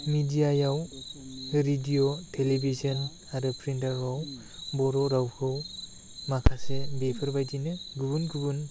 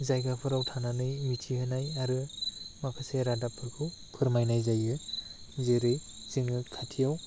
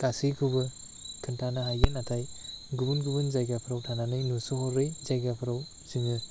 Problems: constant background noise